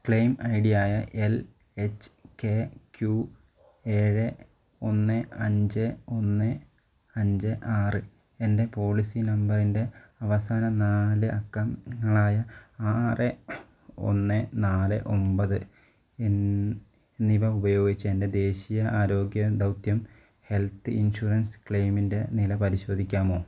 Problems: none marked